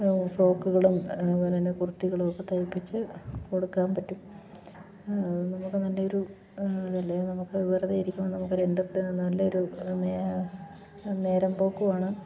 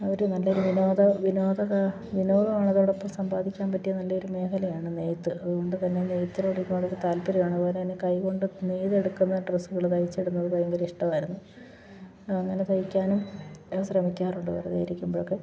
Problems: none marked